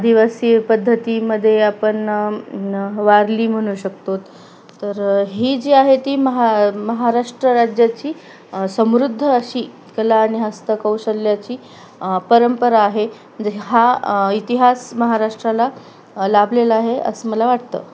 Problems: none marked